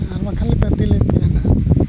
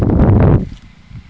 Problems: constant background noise